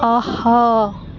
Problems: constant background noise